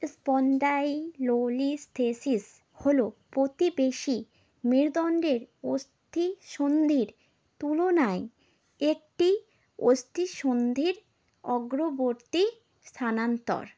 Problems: background sounds at intervals